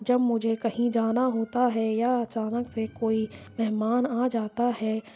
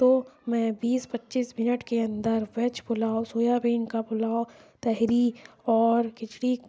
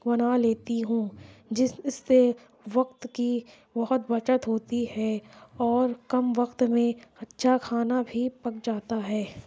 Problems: background sounds at intervals